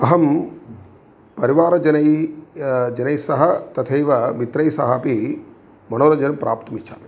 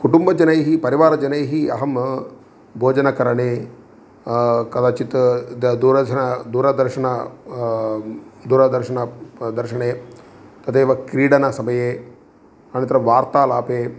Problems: none marked